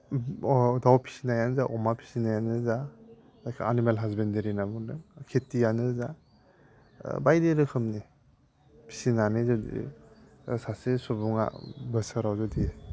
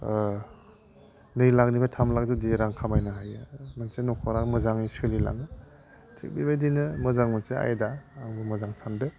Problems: none marked